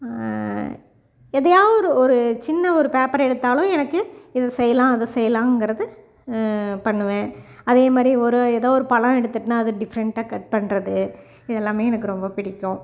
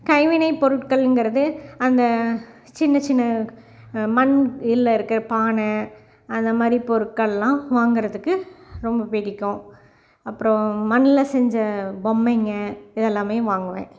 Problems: background sounds at intervals